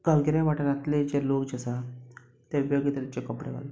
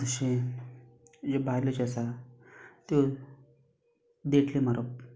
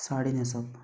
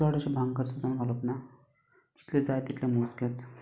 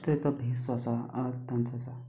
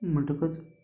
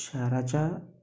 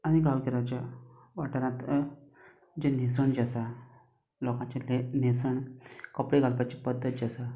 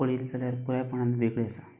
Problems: background sounds at intervals